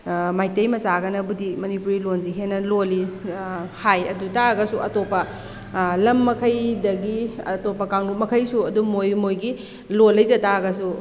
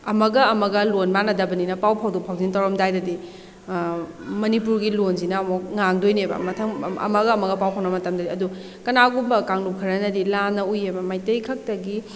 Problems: background sounds at intervals